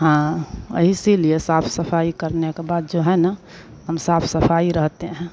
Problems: constant background noise